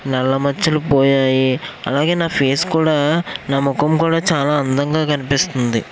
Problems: constant background noise